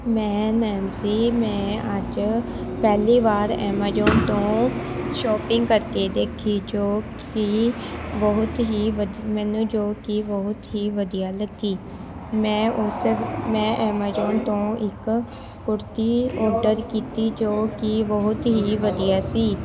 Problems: constant background noise, background conversations at intervals